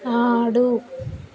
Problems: continuous background conversations